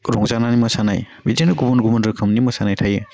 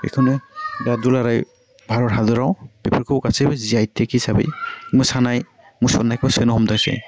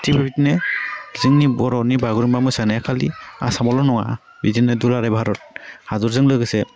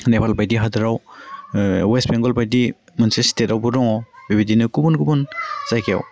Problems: low volume